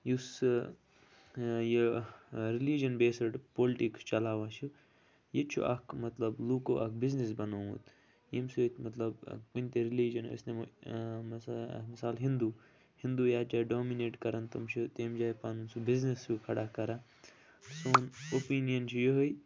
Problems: low volume